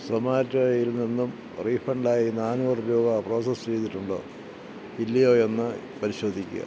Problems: constant background noise, low volume